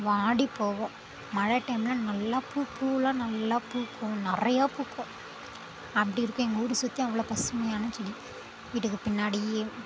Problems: constant background noise